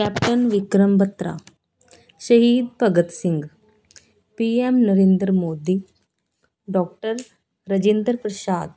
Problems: continuous background conversations